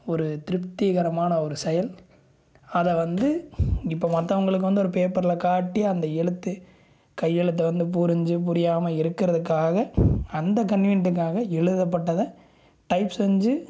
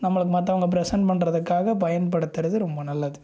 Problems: none marked